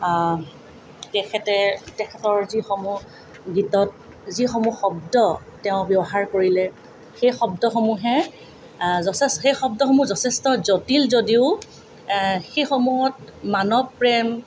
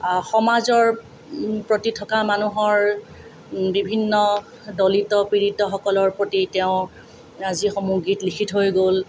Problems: none marked